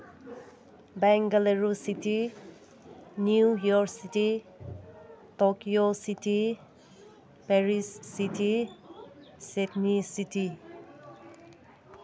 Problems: constant background noise